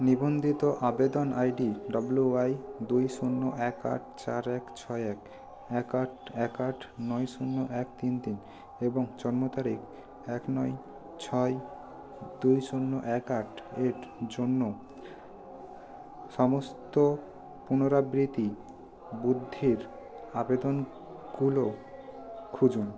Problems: constant background noise